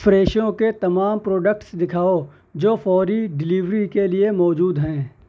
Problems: none marked